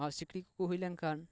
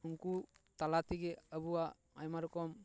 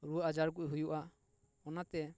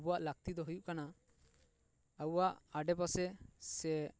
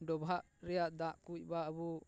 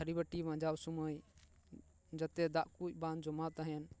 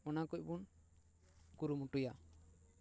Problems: background conversations at intervals